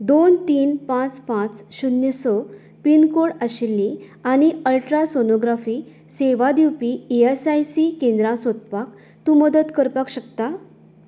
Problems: none marked